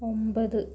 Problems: none marked